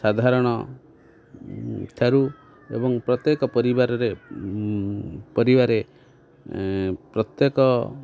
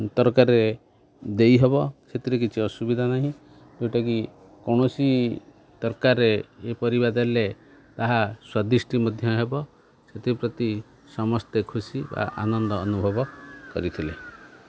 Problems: background sounds at intervals, continuous background conversations